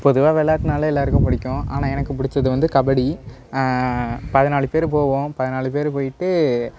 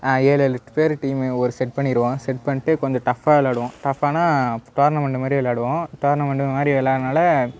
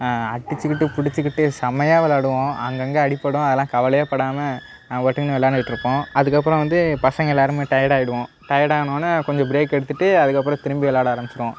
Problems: background sounds at intervals